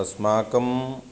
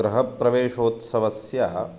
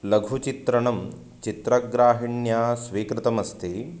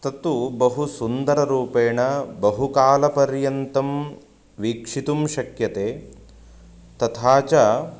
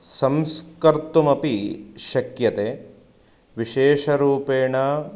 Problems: constant background noise